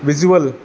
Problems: background sounds at intervals